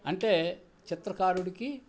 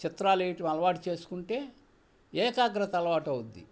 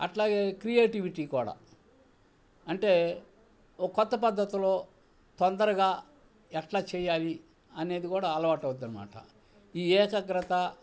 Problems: none marked